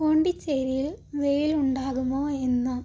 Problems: low volume